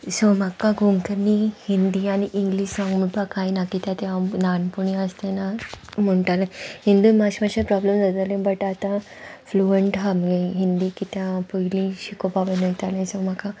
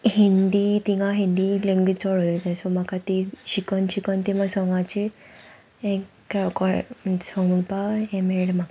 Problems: constant background noise